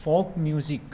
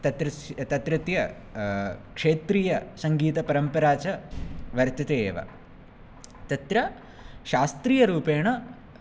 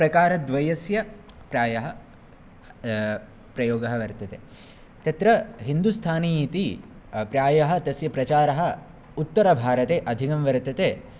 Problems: none marked